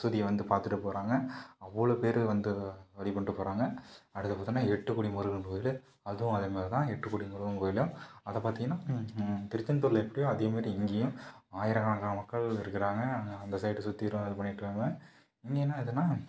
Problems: low volume